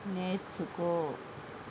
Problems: constant background noise